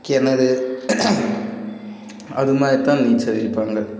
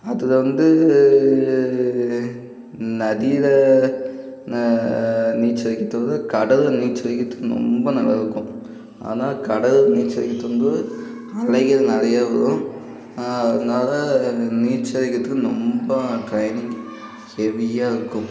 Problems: constant background noise, continuous background conversations